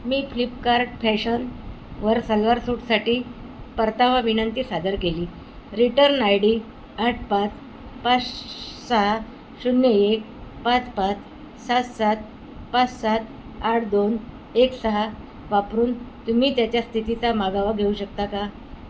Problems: constant background noise